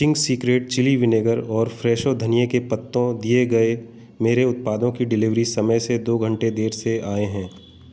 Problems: background sounds at intervals